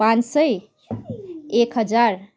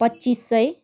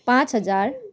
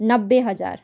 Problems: background conversations at intervals